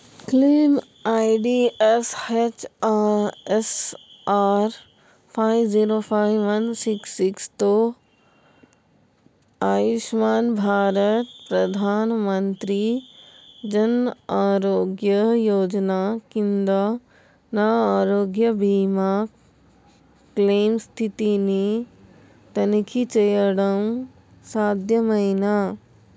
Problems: none marked